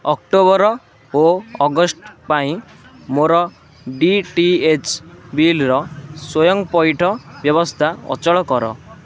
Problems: constant background noise, continuous background conversations